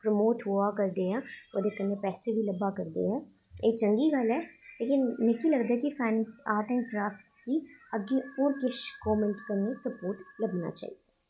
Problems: echo, low volume